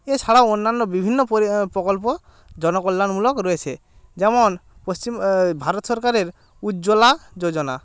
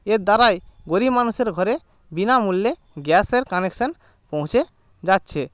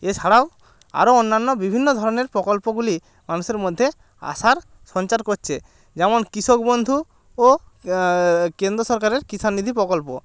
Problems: constant background noise, background conversations at intervals